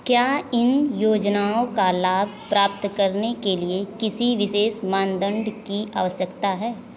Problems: constant background noise